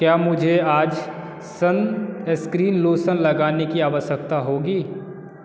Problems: constant background noise